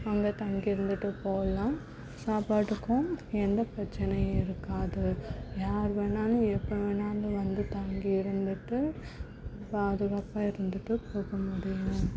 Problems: background sounds at intervals